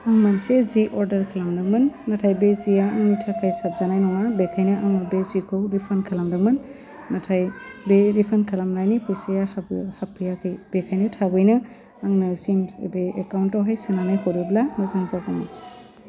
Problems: none marked